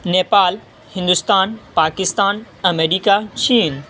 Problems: constant background noise